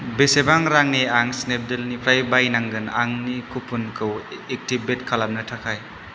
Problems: constant background noise